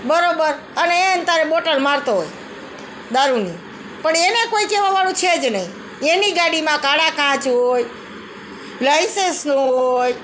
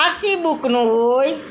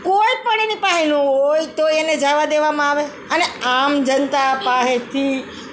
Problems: continuous background conversations